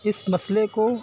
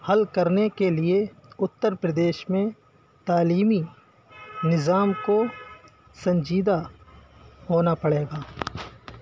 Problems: background sounds at intervals